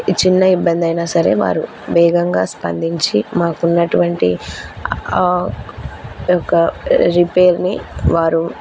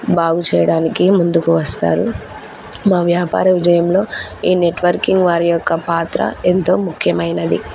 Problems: constant background noise